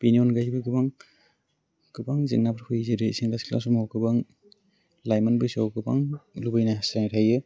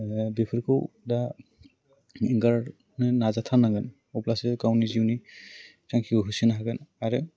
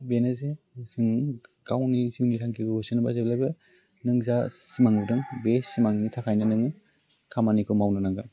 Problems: none marked